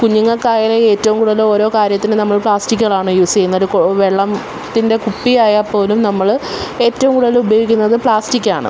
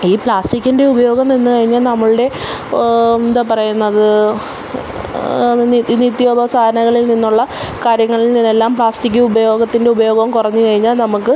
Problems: constant background noise